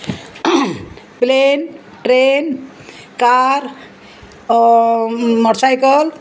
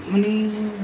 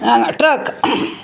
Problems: constant background noise